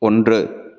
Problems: none marked